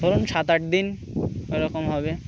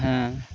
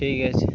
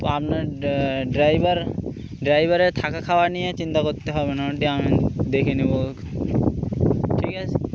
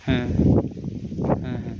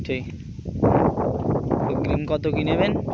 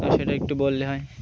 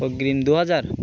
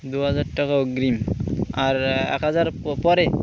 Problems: constant background noise, continuous background conversations